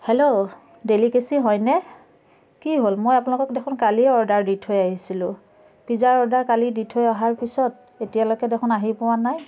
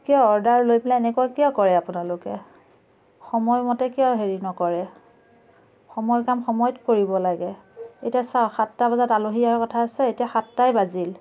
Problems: constant background noise